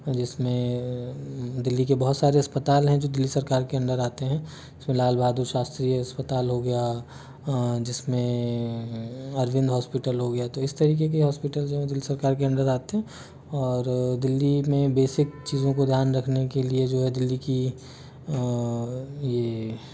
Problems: background sounds at intervals